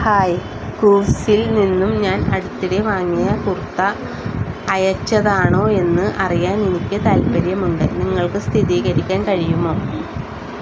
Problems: constant background noise